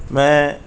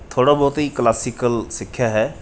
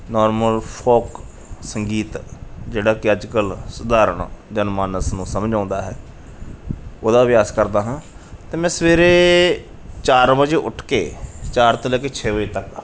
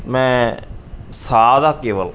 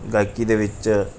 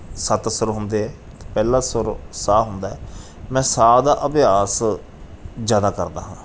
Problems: background sounds at intervals